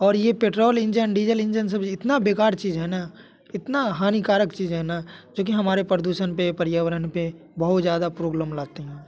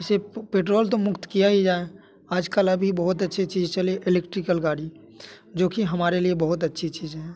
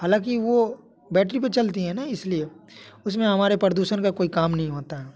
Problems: none marked